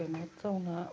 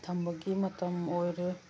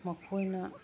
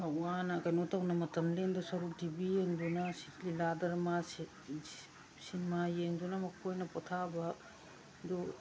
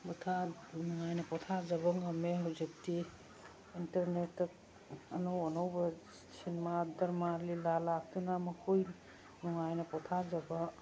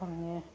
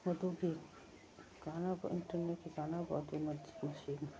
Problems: background sounds at intervals